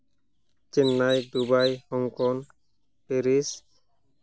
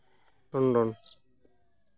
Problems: background sounds at intervals